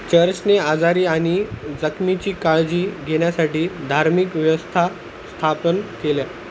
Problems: constant background noise